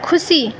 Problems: continuous background conversations